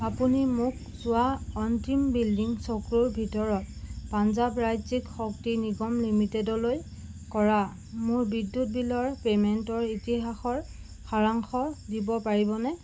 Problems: none marked